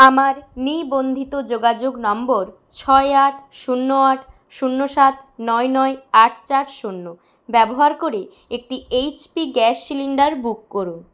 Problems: none marked